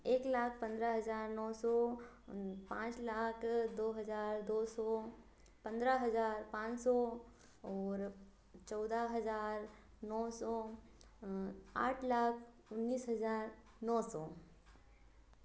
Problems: constant background noise